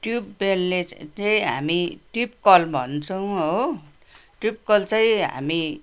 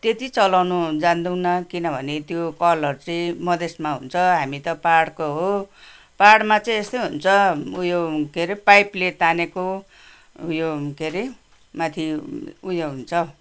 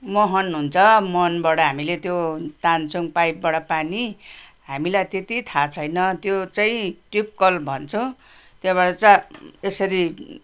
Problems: background sounds at intervals